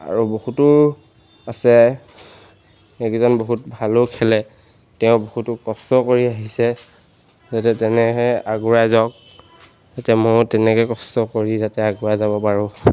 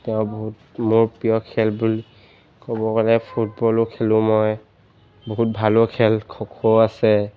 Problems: none marked